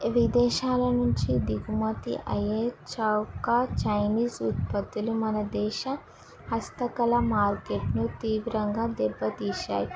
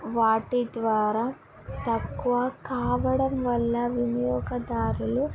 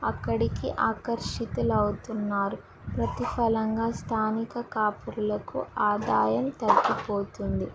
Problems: background sounds at intervals, background conversations at intervals